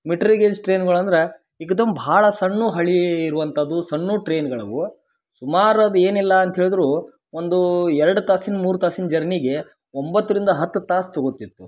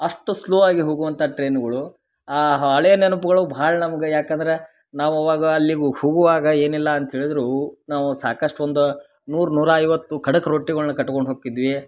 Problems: none marked